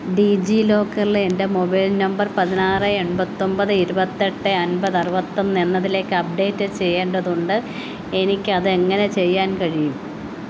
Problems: constant background noise